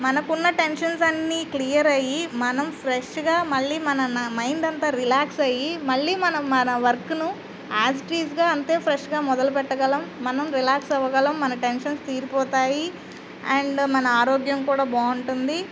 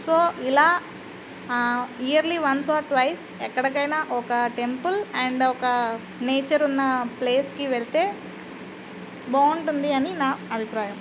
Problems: constant background noise